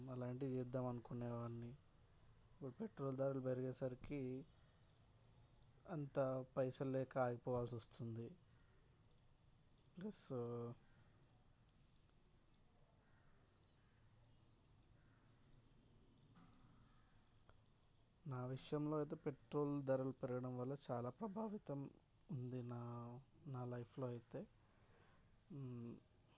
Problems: background sounds at intervals